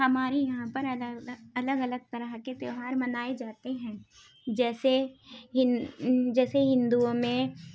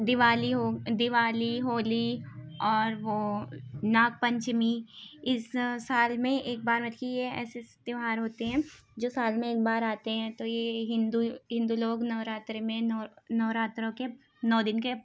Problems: constant background noise